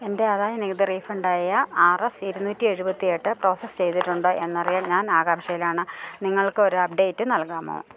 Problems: none marked